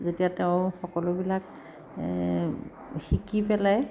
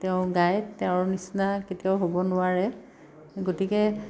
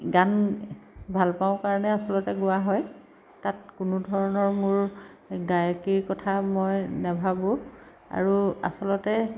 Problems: background sounds at intervals